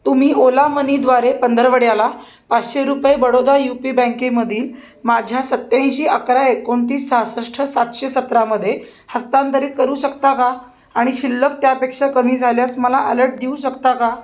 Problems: constant background noise